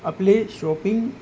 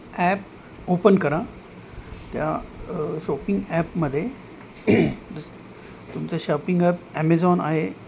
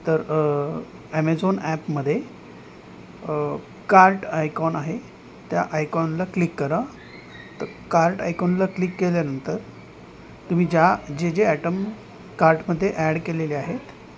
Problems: constant background noise